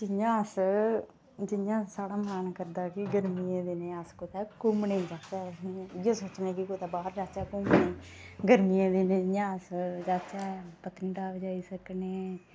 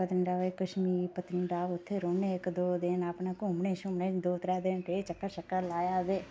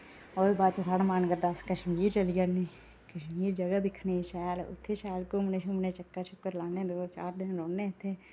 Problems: none marked